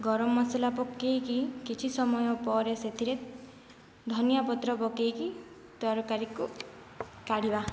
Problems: low volume